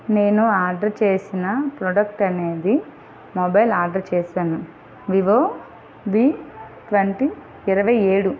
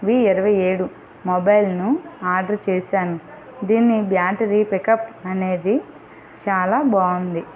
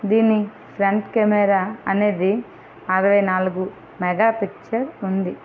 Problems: constant background noise, background conversations at intervals